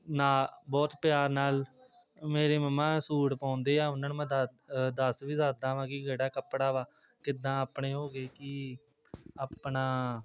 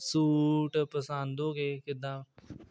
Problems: background sounds at intervals, background conversations at intervals